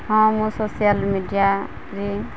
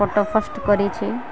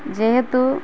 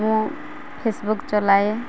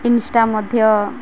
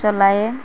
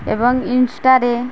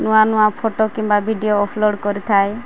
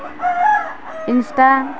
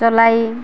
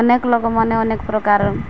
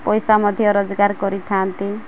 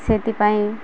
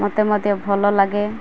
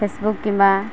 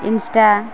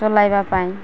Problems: constant background noise